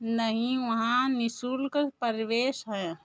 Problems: none marked